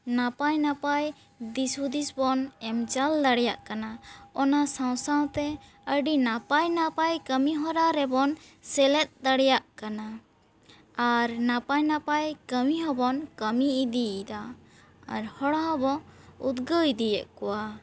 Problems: background sounds at intervals